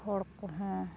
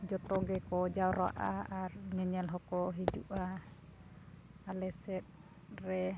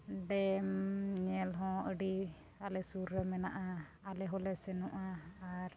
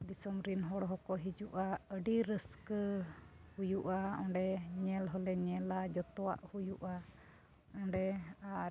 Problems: background sounds at intervals, low volume